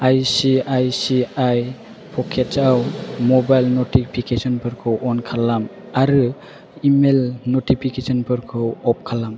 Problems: constant background noise